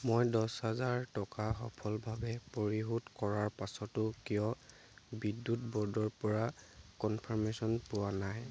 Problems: background sounds at intervals